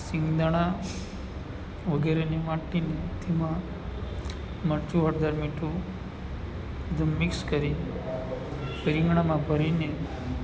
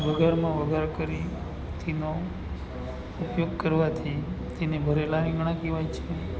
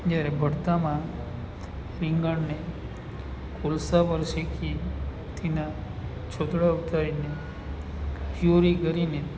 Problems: none marked